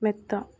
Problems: none marked